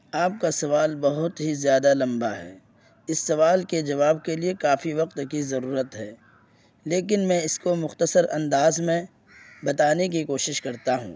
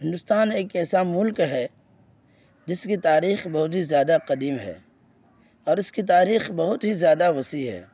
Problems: constant background noise